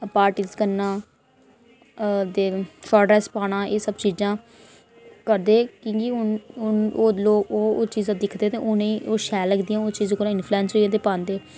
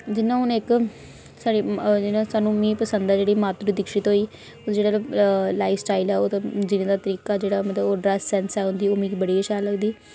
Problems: none marked